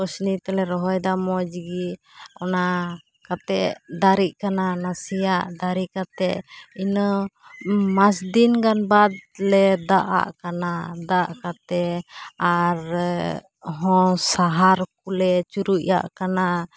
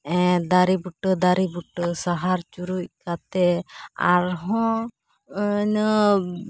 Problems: none marked